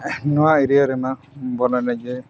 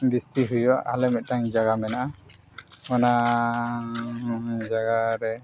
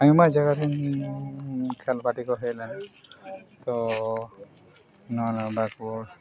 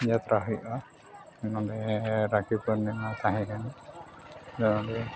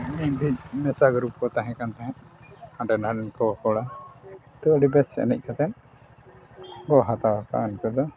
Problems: background sounds at intervals, continuous background conversations